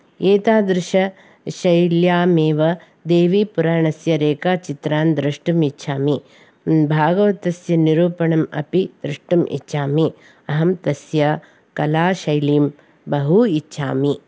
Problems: none marked